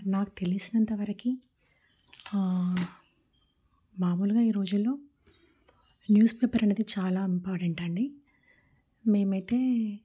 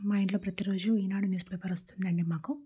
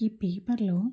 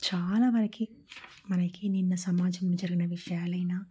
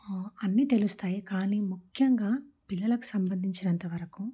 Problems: low volume